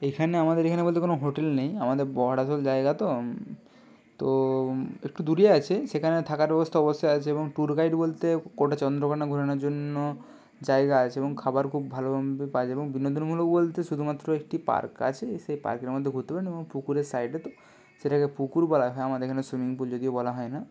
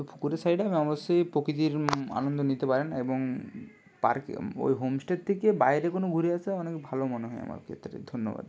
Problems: constant background noise